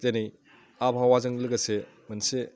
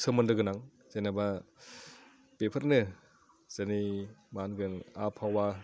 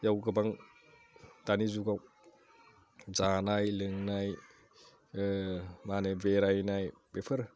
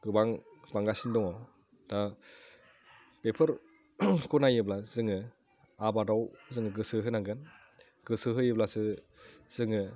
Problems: none marked